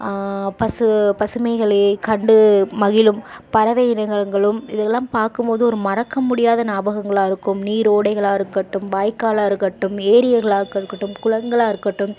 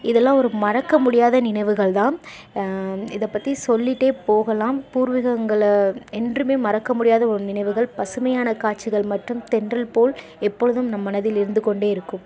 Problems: constant background noise, background conversations at intervals